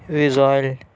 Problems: none marked